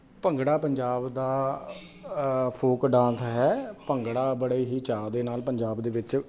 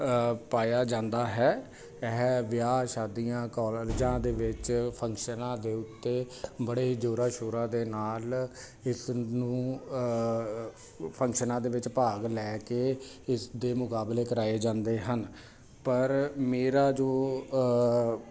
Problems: none marked